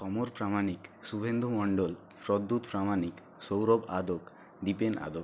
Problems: constant background noise